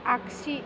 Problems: constant background noise